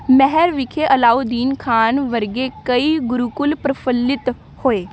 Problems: background sounds at intervals